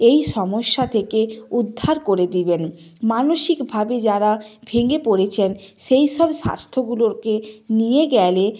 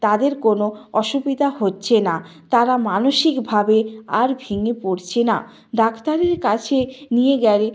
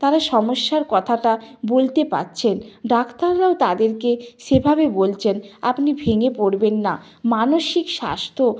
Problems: background sounds at intervals, continuous background conversations